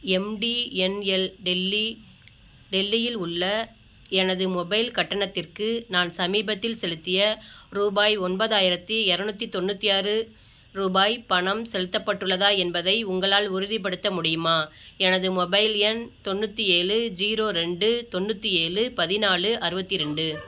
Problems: none marked